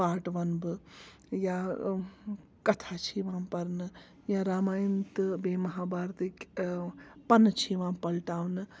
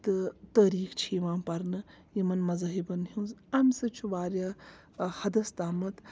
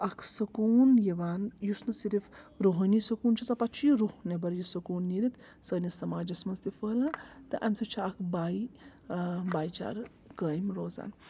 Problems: background sounds at intervals, background conversations at intervals